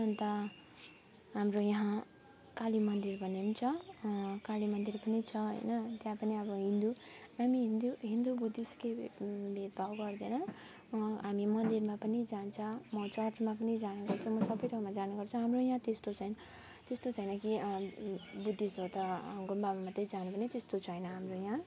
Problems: none marked